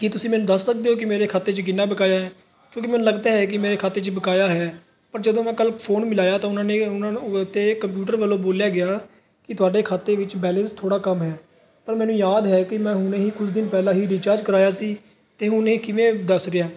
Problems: background sounds at intervals, background conversations at intervals